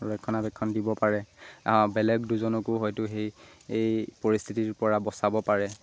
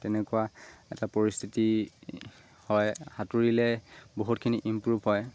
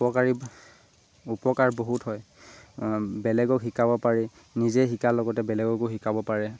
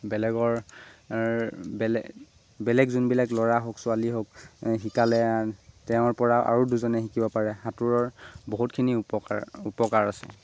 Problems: constant background noise